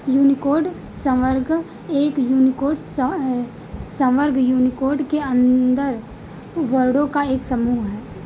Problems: background sounds at intervals